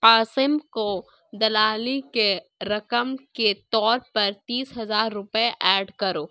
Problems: none marked